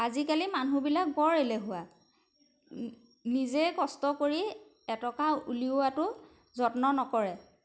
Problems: background sounds at intervals